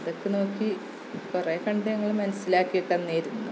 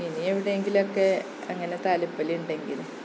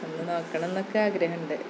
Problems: constant background noise, low volume